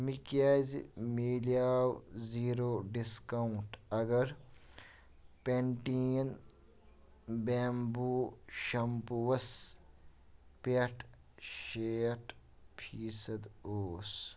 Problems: background sounds at intervals